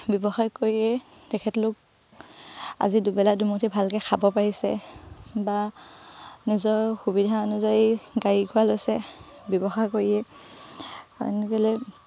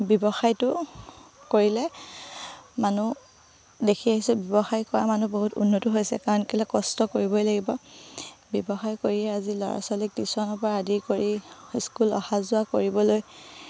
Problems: low volume